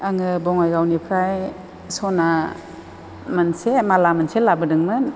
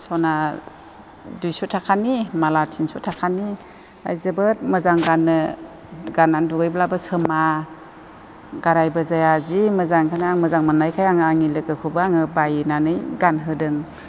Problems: constant background noise